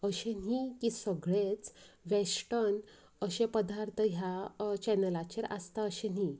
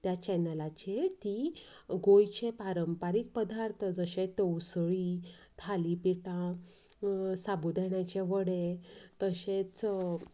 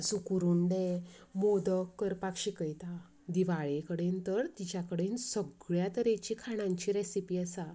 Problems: none marked